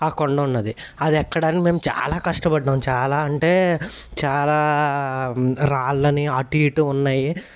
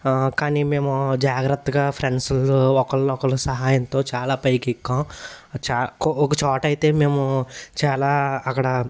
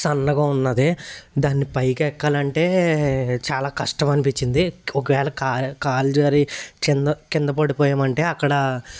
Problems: none marked